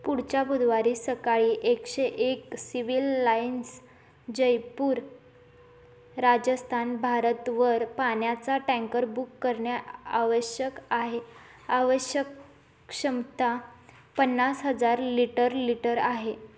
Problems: constant background noise